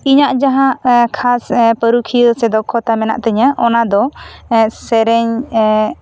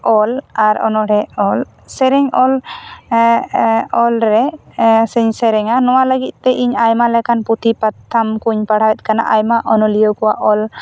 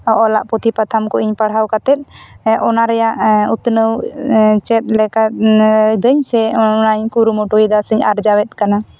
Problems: none marked